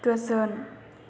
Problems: constant background noise